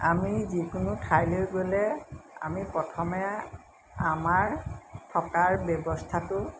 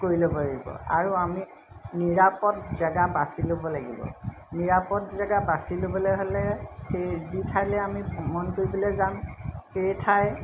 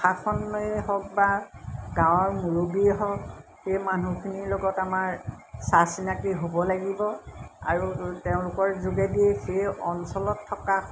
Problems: none marked